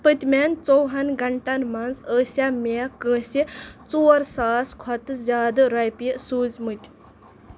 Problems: none marked